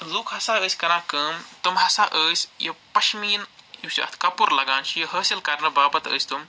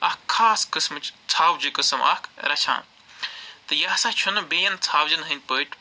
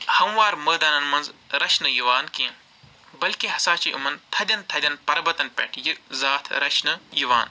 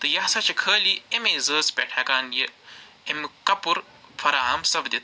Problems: background sounds at intervals